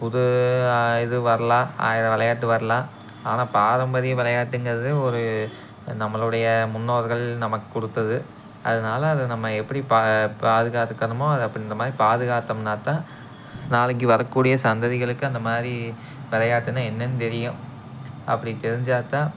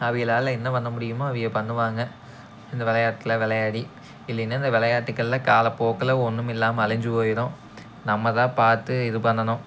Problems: background sounds at intervals